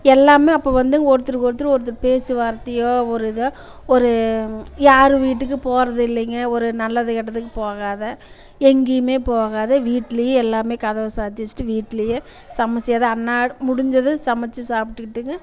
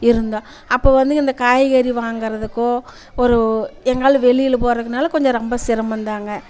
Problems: constant background noise, continuous background conversations